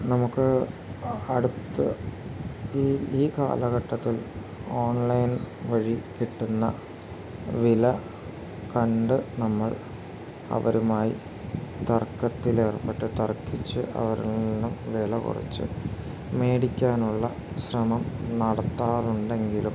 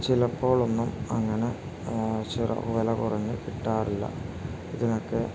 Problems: constant background noise